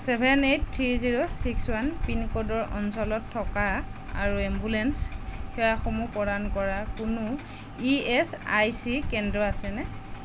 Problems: none marked